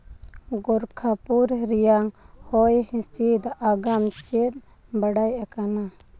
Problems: none marked